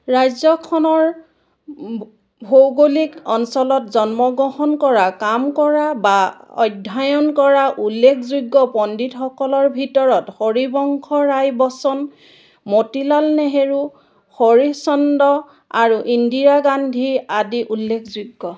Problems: background sounds at intervals